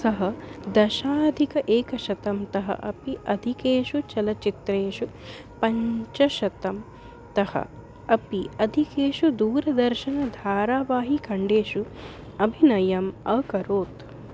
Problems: constant background noise